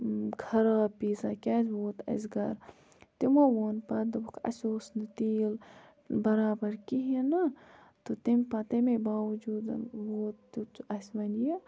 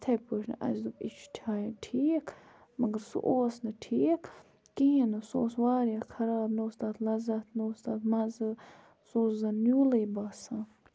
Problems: background sounds at intervals